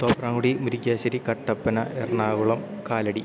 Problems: low volume